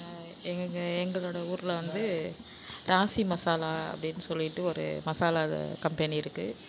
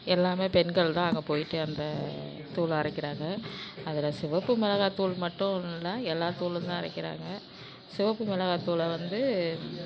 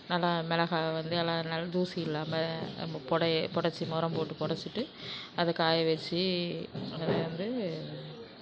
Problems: constant background noise